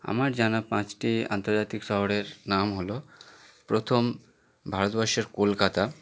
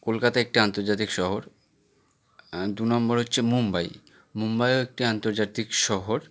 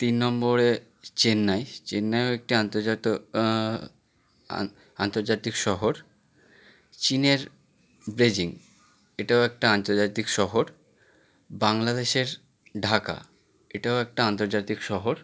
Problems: none marked